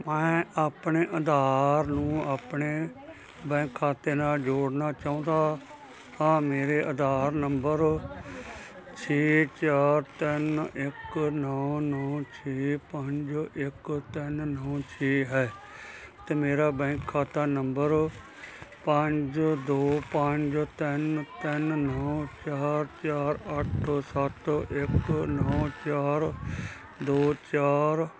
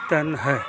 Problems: continuous background conversations